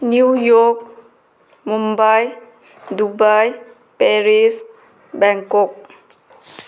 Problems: background sounds at intervals